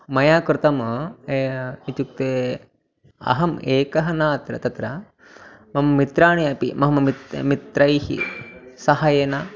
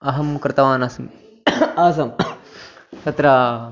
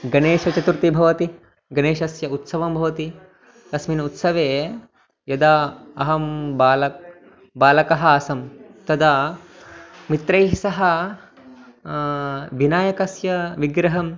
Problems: background sounds at intervals